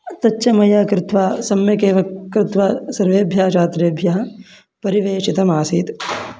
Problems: constant background noise